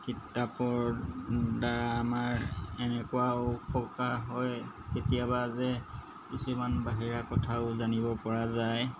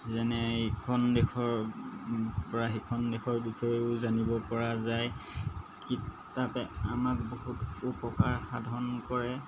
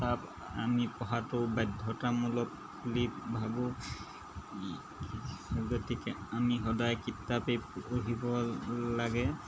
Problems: background sounds at intervals